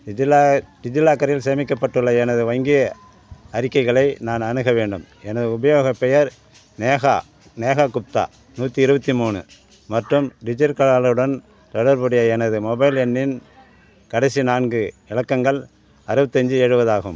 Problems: background sounds at intervals